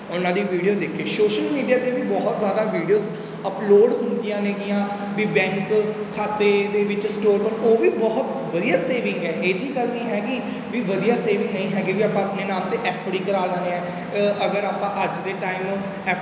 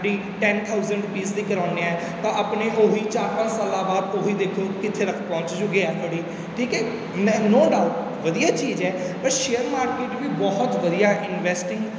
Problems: none marked